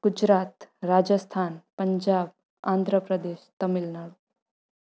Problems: none marked